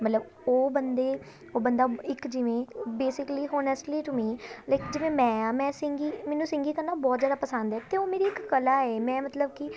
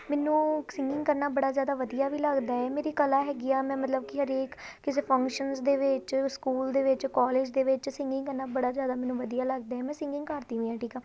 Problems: constant background noise, continuous background conversations